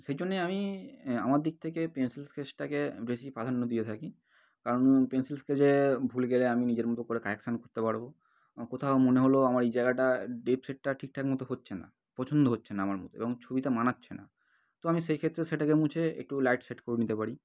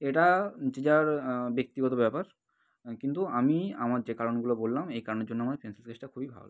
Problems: none marked